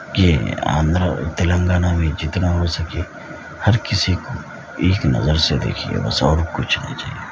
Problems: constant background noise